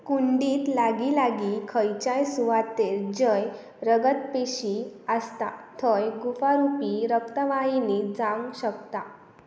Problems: none marked